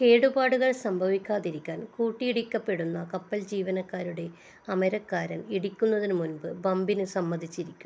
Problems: low volume